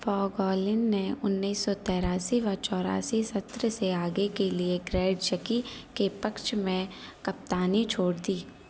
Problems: constant background noise